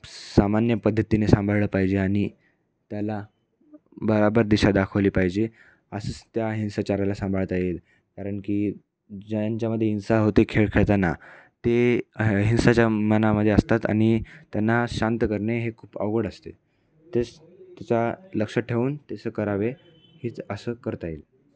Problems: none marked